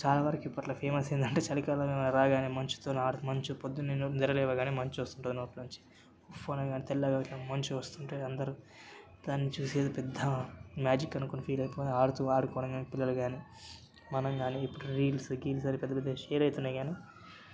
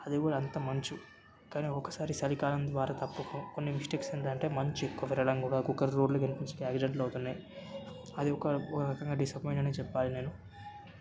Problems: background sounds at intervals, background conversations at intervals